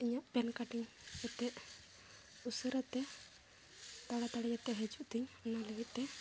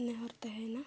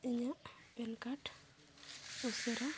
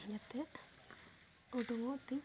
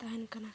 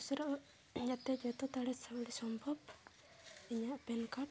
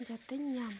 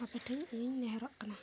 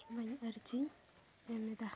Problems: background sounds at intervals, low volume